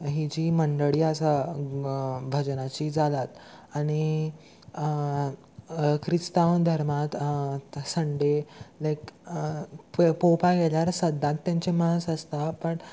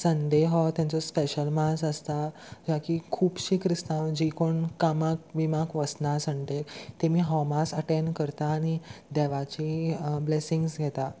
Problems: none marked